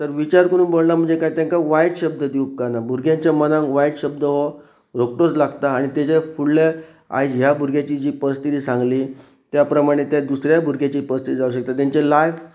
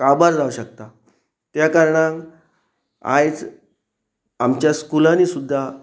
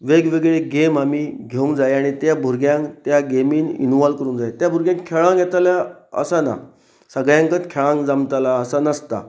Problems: none marked